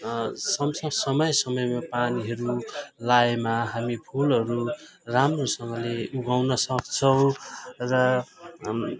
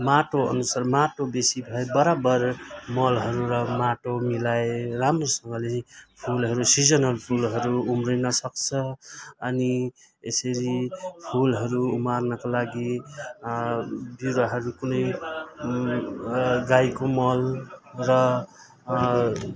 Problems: continuous background conversations